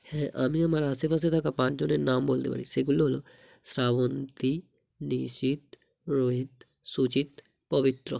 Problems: none marked